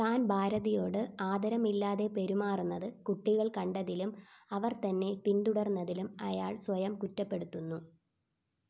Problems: background sounds at intervals, low volume